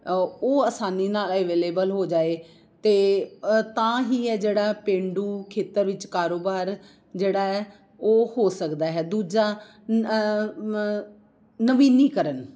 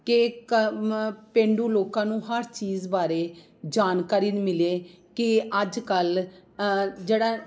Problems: none marked